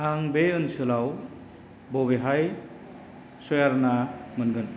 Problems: constant background noise